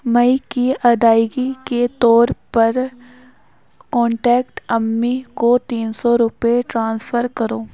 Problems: none marked